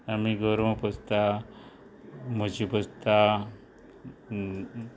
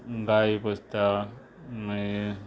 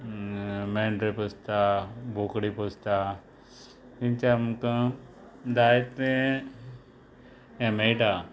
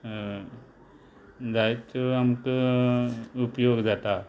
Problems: background sounds at intervals